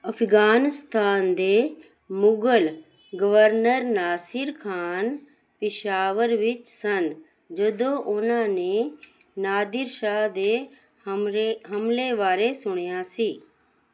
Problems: none marked